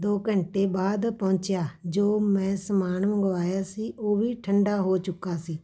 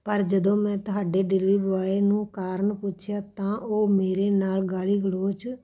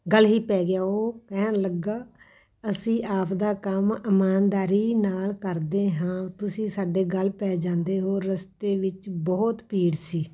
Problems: background sounds at intervals, background conversations at intervals